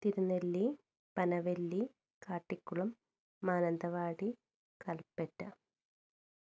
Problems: low volume